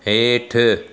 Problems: constant background noise, echo